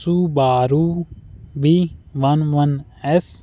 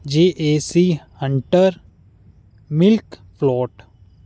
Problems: none marked